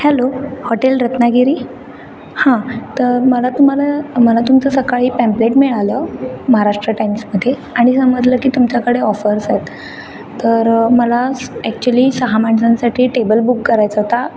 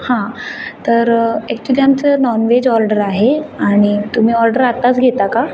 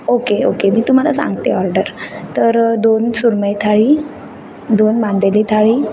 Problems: background sounds at intervals, background conversations at intervals